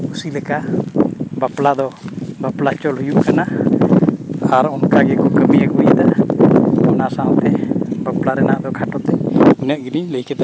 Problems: background sounds at intervals